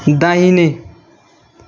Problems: constant background noise